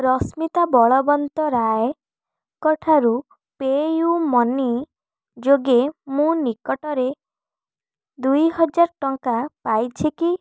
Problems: none marked